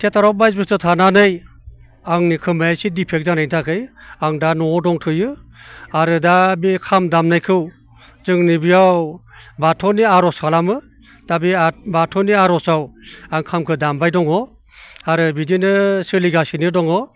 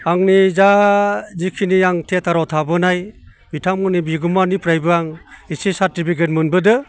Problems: constant background noise